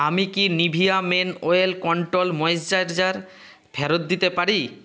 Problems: constant background noise